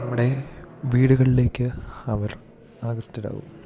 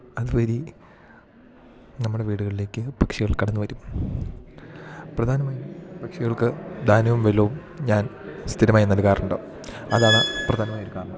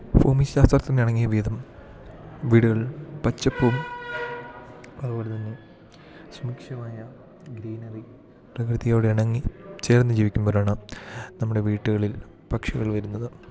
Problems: constant background noise, low volume